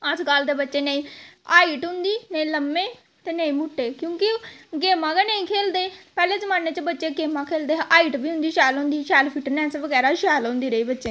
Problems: constant background noise, background conversations at intervals